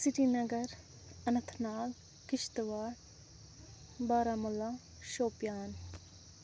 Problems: constant background noise